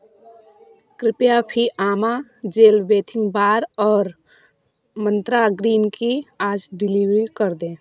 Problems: constant background noise